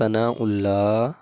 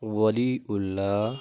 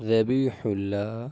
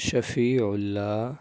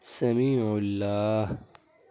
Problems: background sounds at intervals